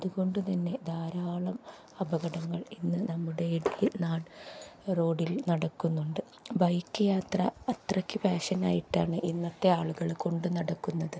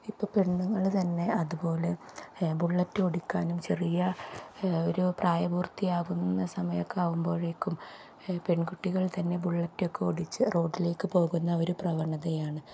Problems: low volume